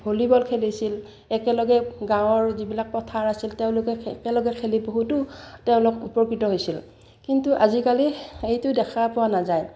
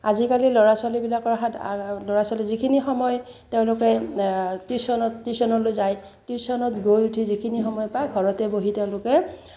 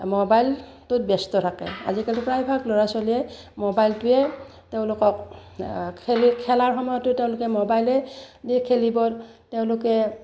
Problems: none marked